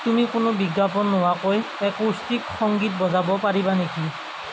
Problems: constant background noise